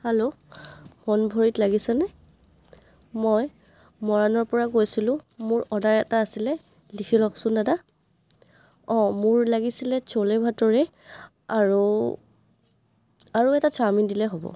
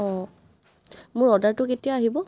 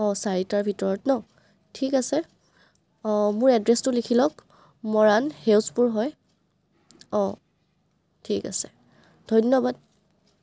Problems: none marked